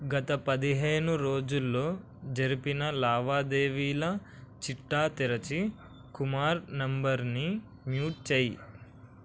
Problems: constant background noise